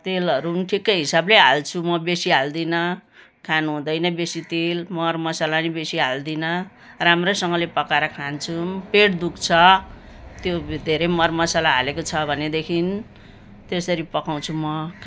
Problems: background sounds at intervals